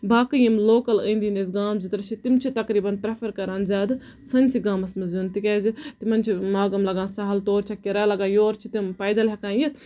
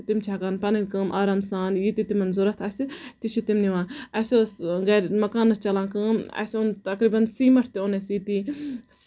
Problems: background sounds at intervals, background conversations at intervals